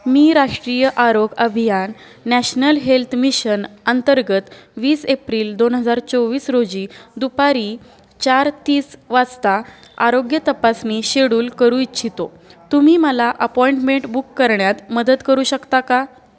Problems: background sounds at intervals, background conversations at intervals